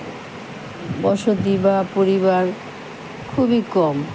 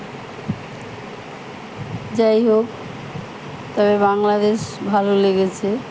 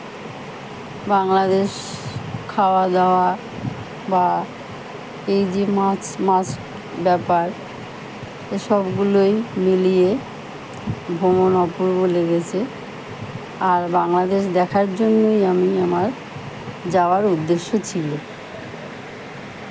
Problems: none marked